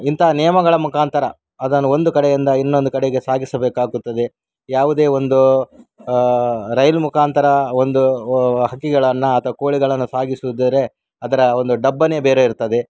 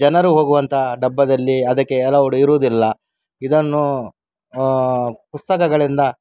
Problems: background sounds at intervals